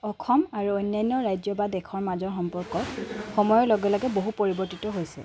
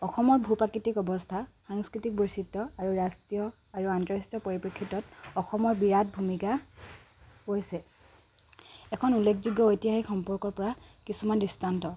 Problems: none marked